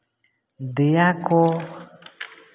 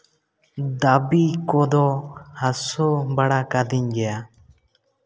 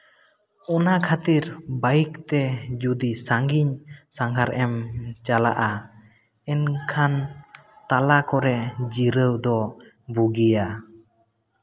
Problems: background sounds at intervals, echo